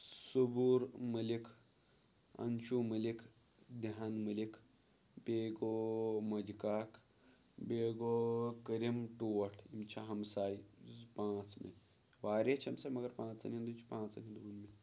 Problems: background sounds at intervals, low volume